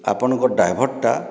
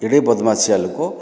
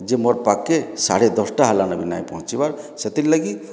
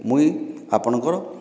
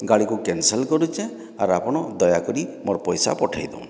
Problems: background sounds at intervals